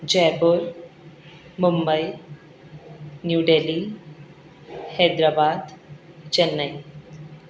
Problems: constant background noise